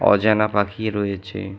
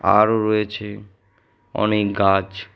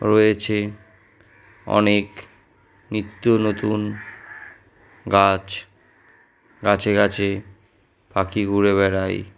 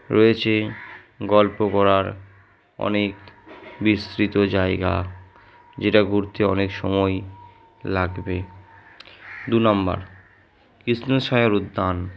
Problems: background sounds at intervals